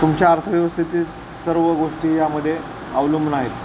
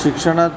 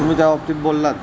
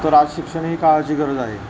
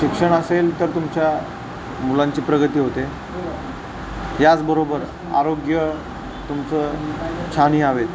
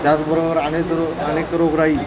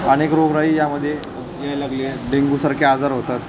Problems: constant background noise